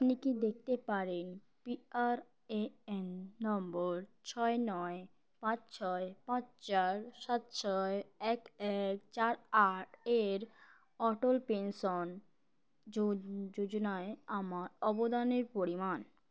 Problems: background sounds at intervals